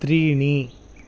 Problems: background sounds at intervals